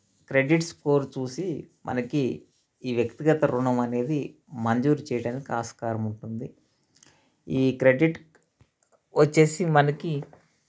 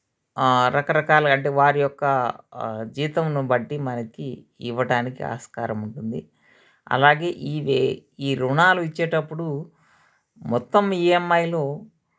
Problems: none marked